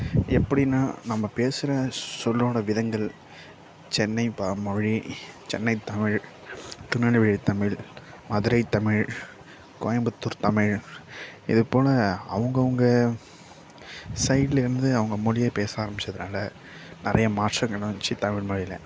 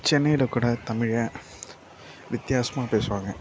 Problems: background sounds at intervals, low volume